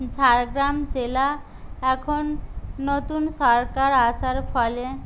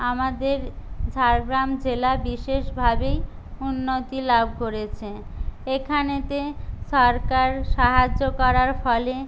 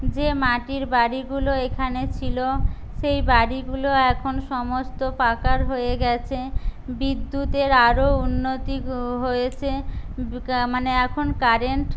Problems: none marked